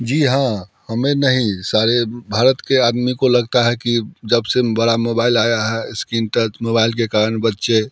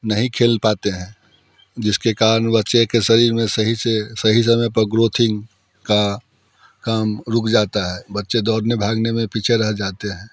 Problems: background sounds at intervals